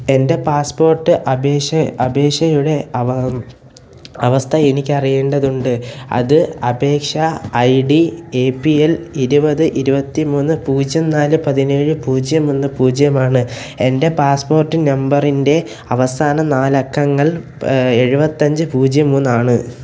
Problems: background sounds at intervals, low volume